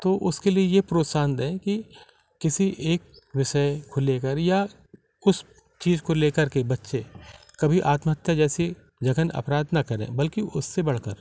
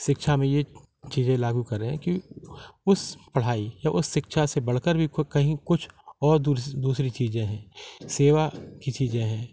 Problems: none marked